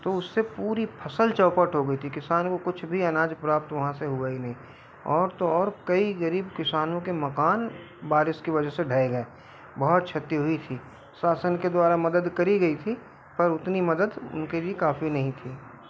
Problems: background sounds at intervals